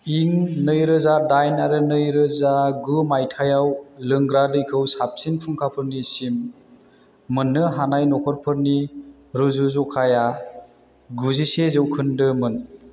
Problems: constant background noise